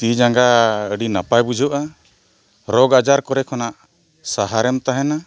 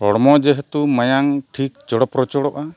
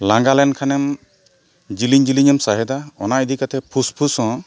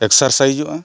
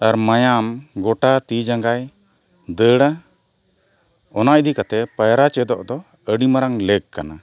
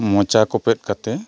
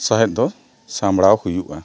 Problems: constant background noise